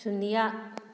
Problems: none marked